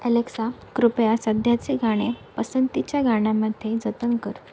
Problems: none marked